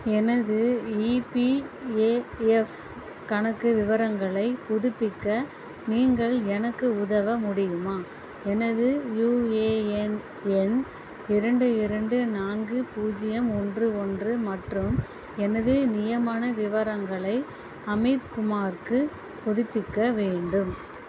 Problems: constant background noise